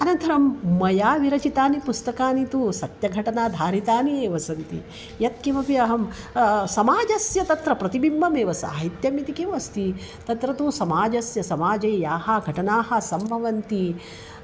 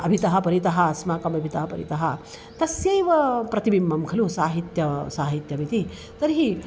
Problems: constant background noise